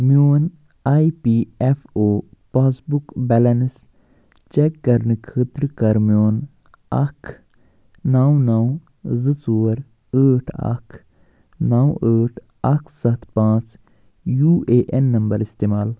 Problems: none marked